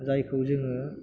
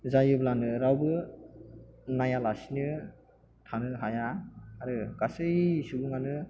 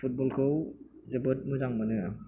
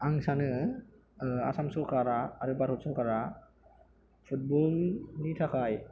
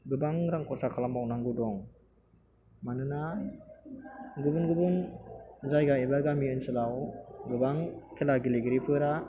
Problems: background sounds at intervals